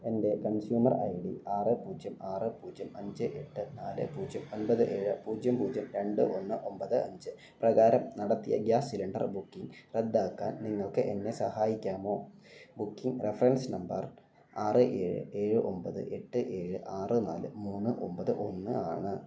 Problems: none marked